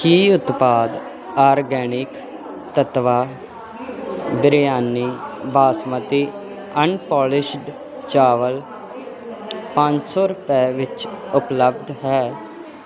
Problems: constant background noise